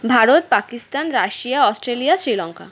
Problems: none marked